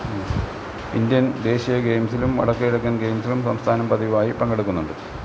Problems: constant background noise